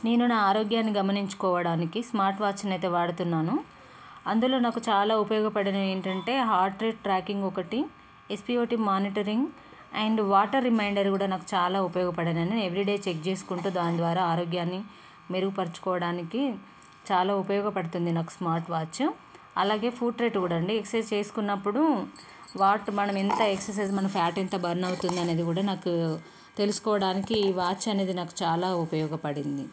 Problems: none marked